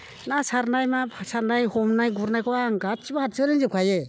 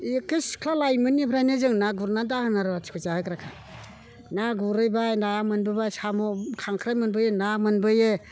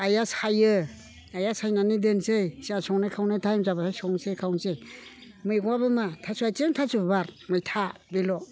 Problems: background conversations at intervals